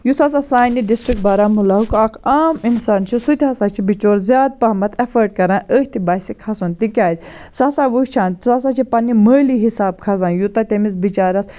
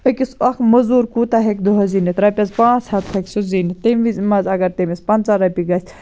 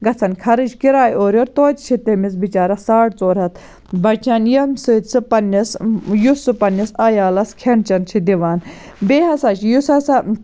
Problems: none marked